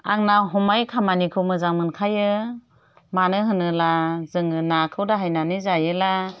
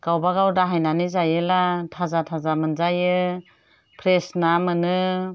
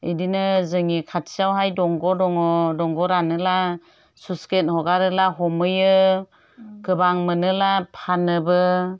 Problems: none marked